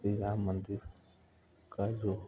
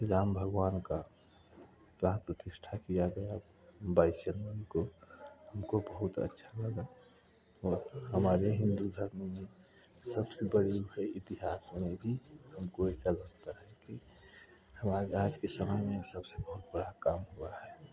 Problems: background sounds at intervals, continuous background conversations